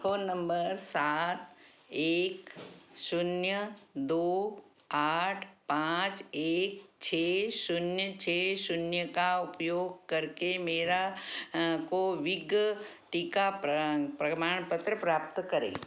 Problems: background sounds at intervals